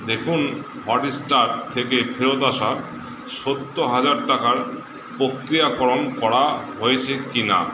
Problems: constant background noise